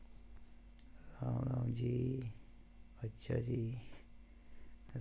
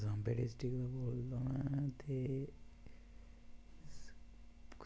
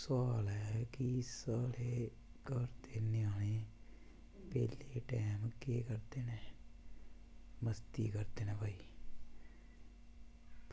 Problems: background sounds at intervals